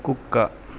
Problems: constant background noise